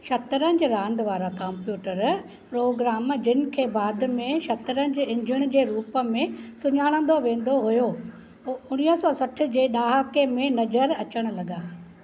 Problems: none marked